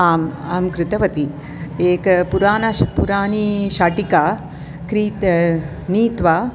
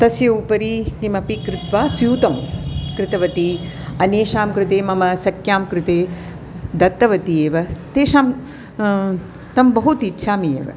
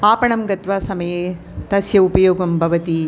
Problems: none marked